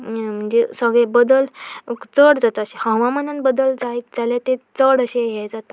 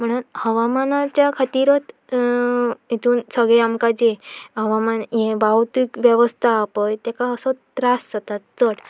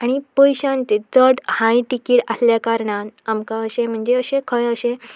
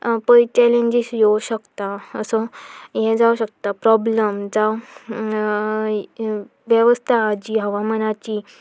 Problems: continuous background conversations